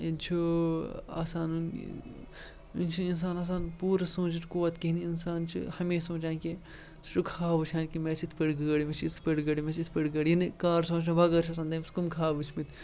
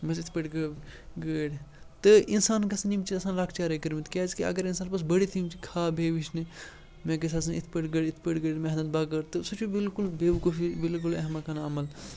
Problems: background sounds at intervals, background conversations at intervals